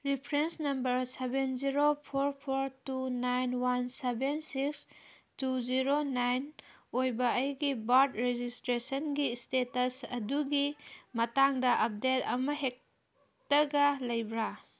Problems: background sounds at intervals